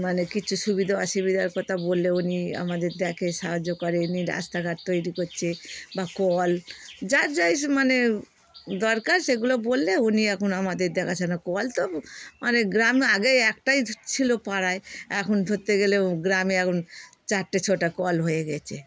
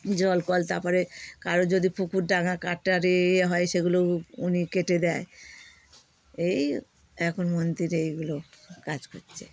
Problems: background sounds at intervals